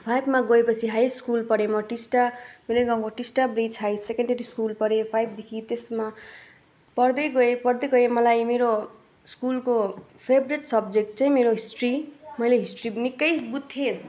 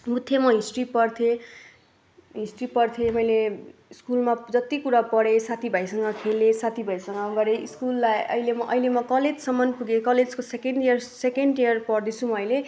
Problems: none marked